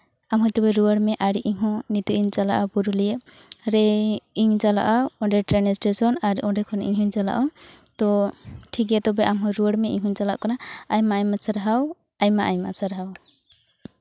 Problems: none marked